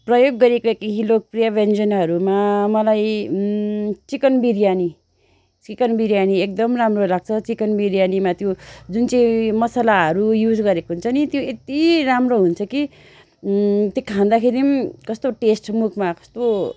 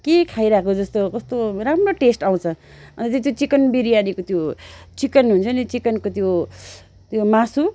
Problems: none marked